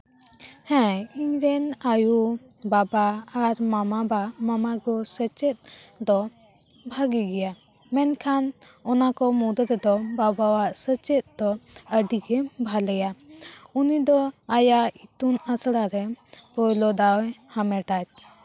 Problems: constant background noise, background conversations at intervals